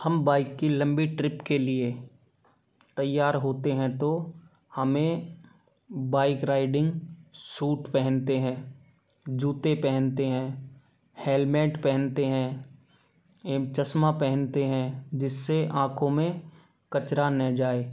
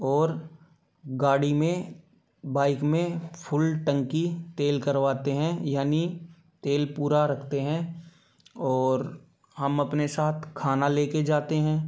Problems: background sounds at intervals